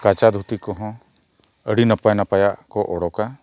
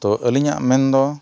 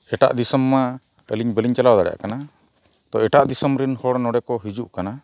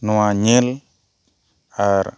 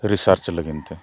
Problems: background sounds at intervals